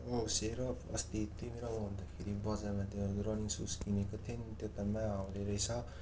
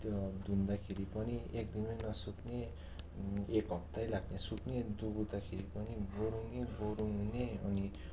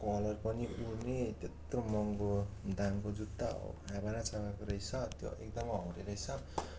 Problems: constant background noise